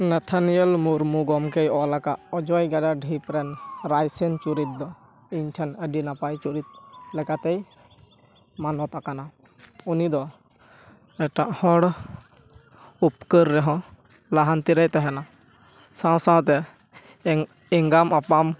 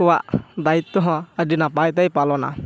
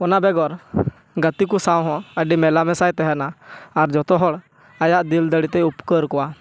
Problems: constant background noise, continuous background conversations